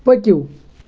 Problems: constant background noise